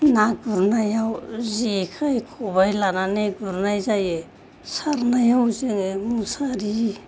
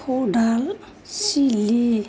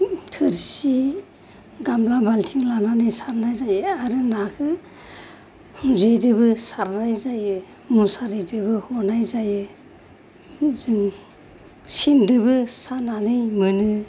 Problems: low volume